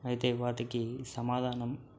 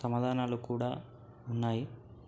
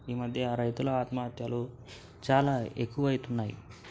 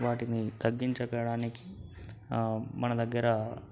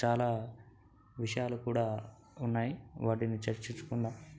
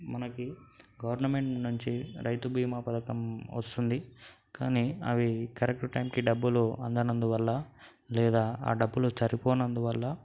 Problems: none marked